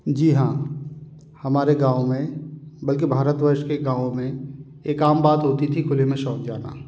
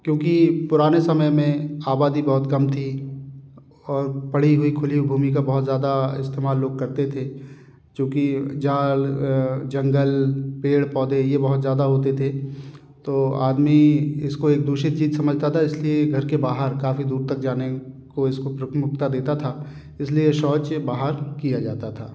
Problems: none marked